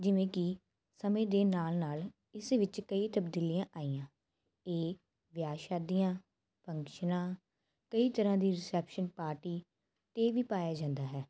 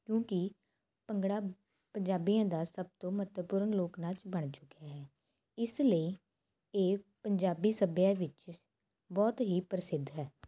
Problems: constant background noise